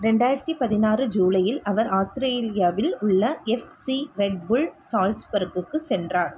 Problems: none marked